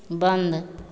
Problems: constant background noise, echo